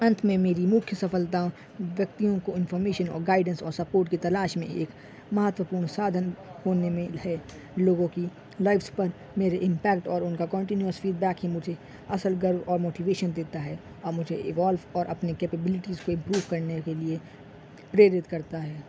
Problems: constant background noise